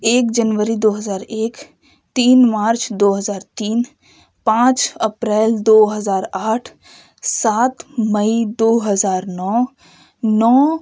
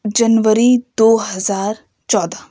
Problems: none marked